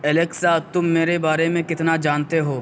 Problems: constant background noise